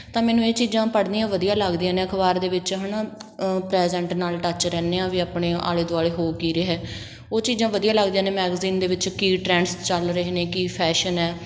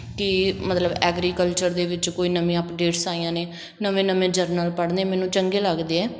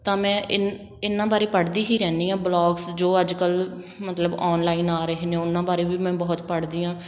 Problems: constant background noise